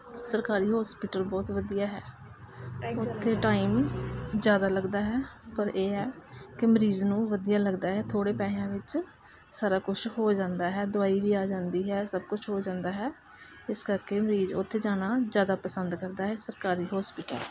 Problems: constant background noise, background conversations at intervals